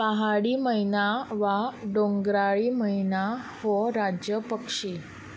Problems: constant background noise